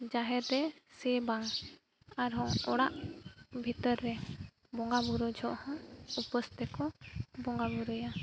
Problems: background sounds at intervals